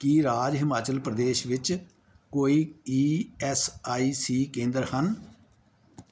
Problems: none marked